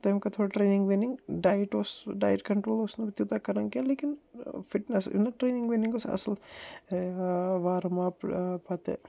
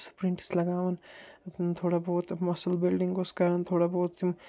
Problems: none marked